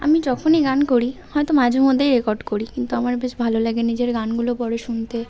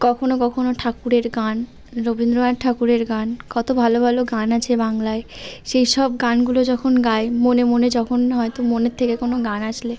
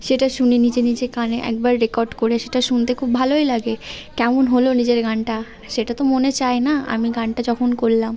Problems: none marked